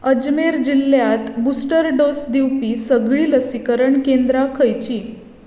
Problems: constant background noise, echo